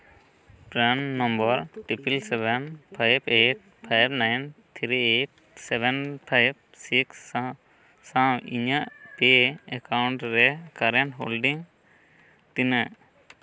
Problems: constant background noise, background conversations at intervals